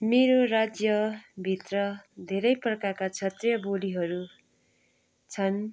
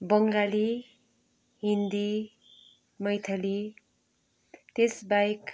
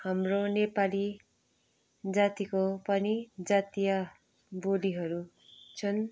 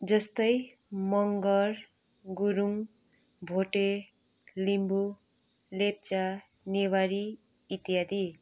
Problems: background sounds at intervals